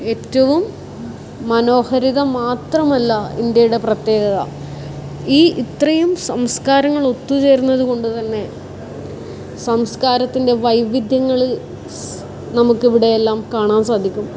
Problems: constant background noise